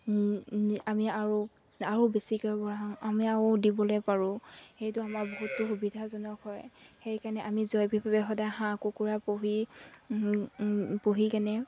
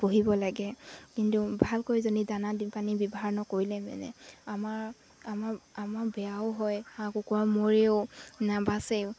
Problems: background sounds at intervals